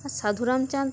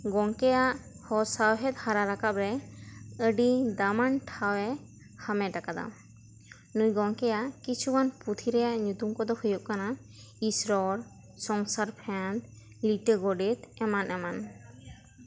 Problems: none marked